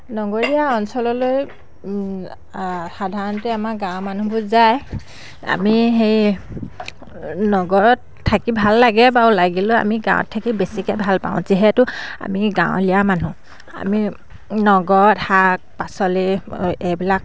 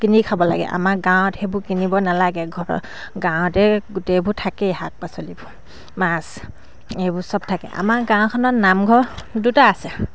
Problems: background sounds at intervals